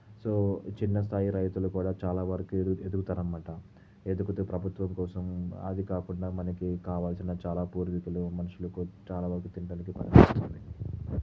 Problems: low volume